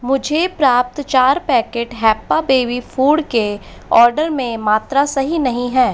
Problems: constant background noise